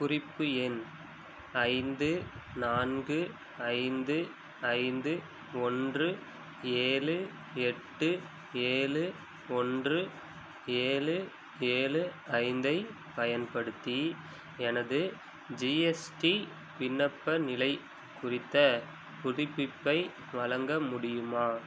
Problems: background sounds at intervals